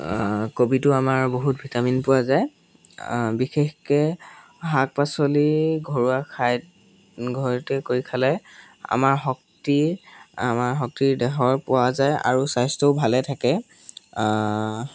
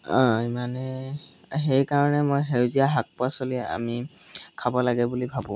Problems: background sounds at intervals